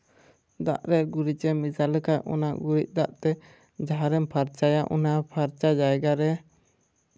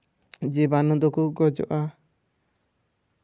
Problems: none marked